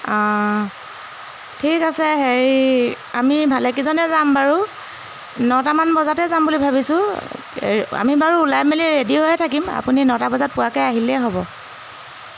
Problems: constant background noise